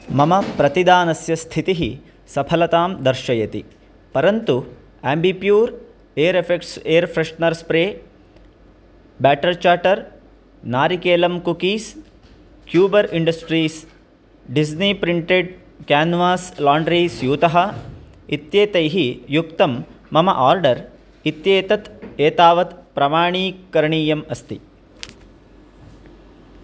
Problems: constant background noise